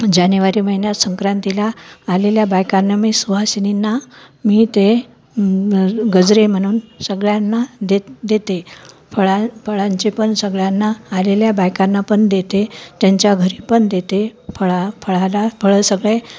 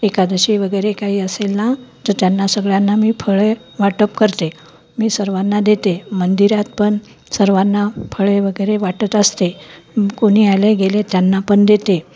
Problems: none marked